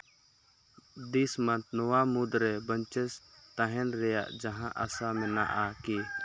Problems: background sounds at intervals